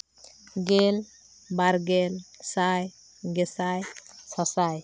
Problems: none marked